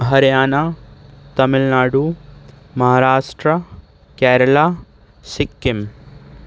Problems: constant background noise